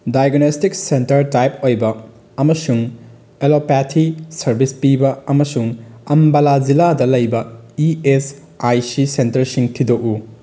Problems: background sounds at intervals